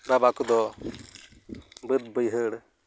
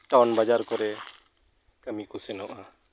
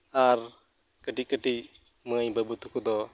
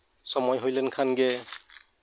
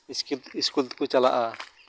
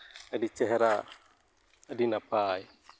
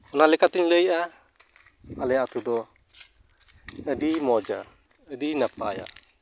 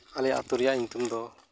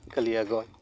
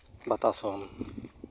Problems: background sounds at intervals